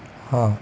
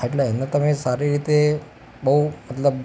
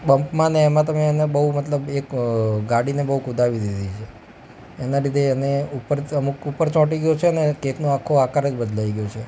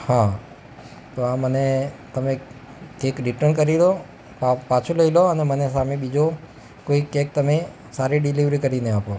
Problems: constant background noise